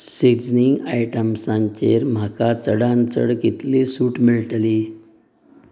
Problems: none marked